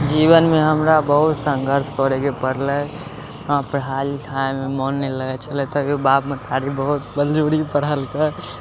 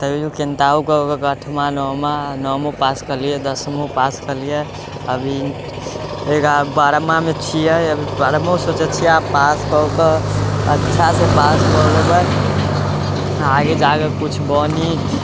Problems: constant background noise